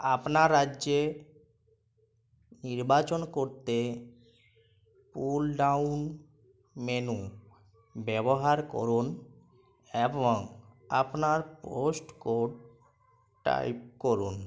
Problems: constant background noise